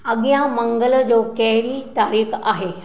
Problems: none marked